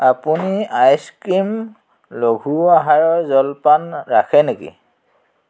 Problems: background sounds at intervals